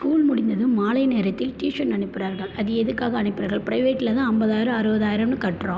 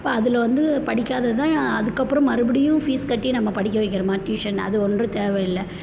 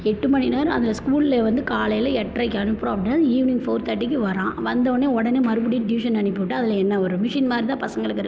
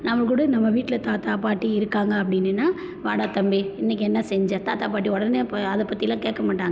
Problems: constant background noise